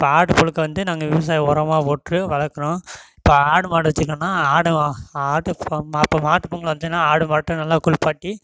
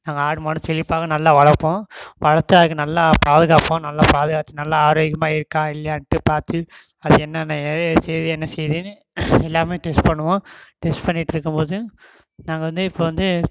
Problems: background sounds at intervals